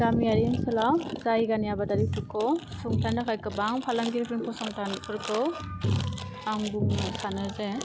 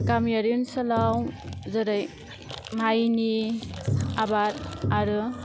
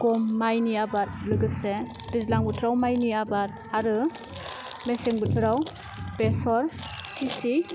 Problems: constant background noise